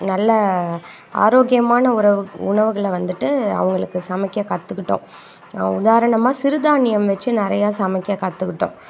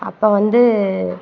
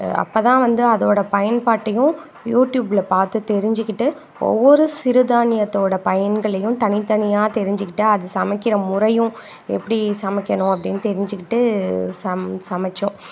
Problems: constant background noise